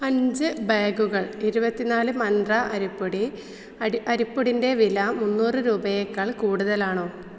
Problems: low volume